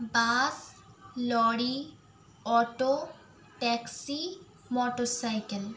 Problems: background sounds at intervals